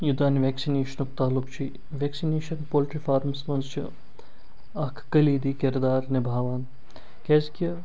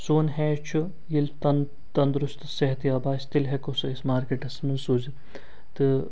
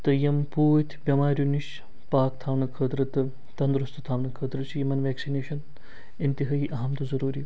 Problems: none marked